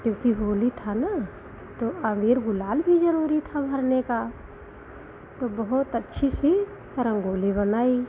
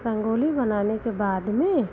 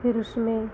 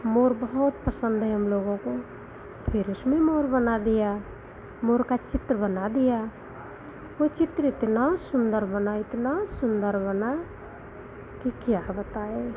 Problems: constant background noise